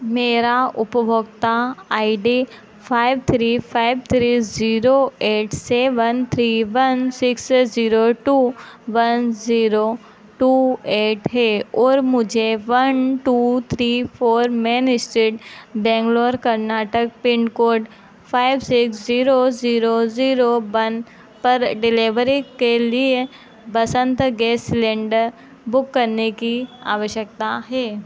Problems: none marked